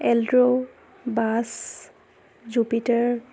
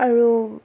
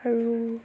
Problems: background sounds at intervals